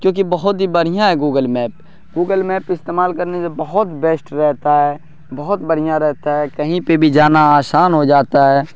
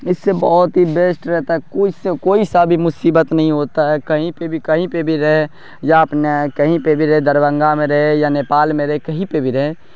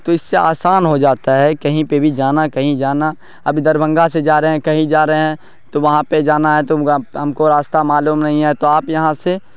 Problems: constant background noise